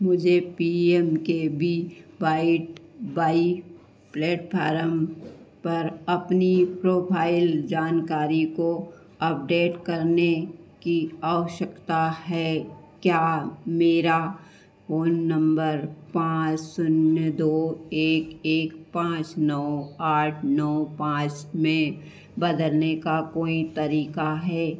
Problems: constant background noise, echo